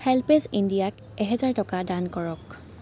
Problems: constant background noise